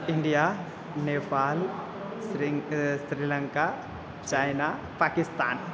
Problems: constant background noise, continuous background conversations